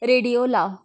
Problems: background sounds at intervals, background conversations at intervals